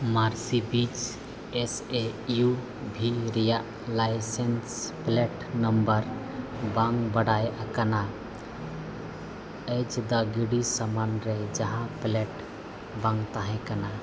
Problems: constant background noise